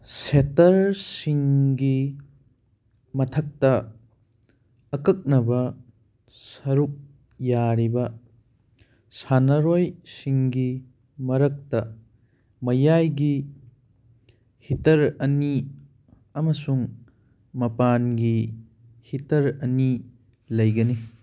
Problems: none marked